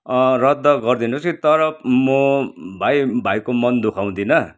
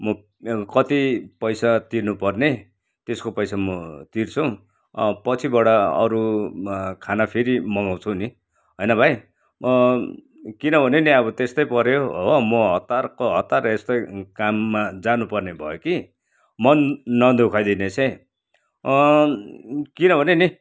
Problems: background sounds at intervals